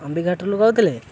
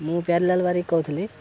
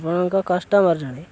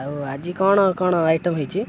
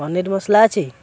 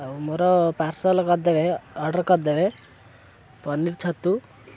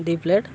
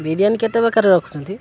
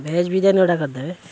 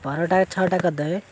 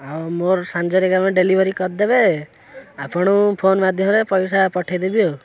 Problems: constant background noise, continuous background conversations